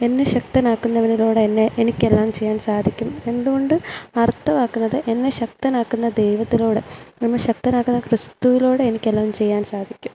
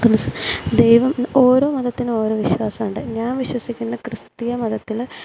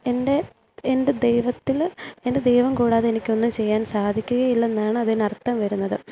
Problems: low volume